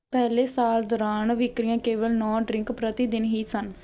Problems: background sounds at intervals